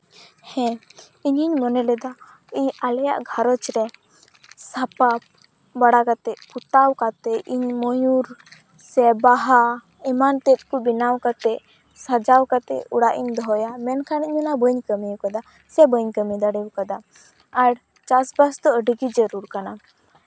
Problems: none marked